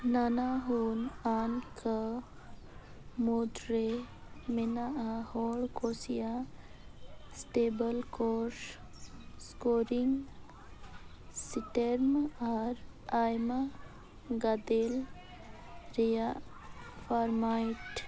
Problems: constant background noise, low volume